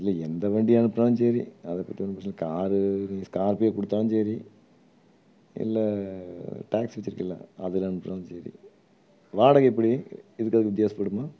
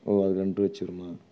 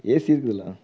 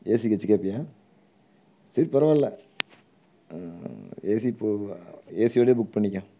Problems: low volume